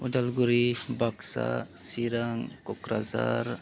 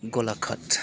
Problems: none marked